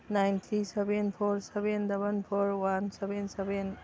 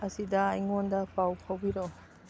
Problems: background sounds at intervals, background conversations at intervals